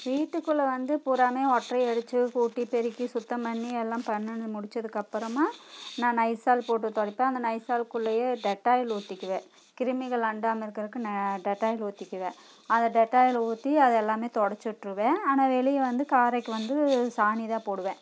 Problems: constant background noise